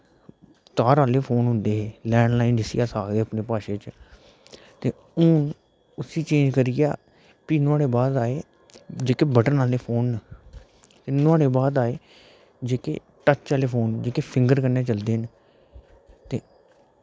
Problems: background sounds at intervals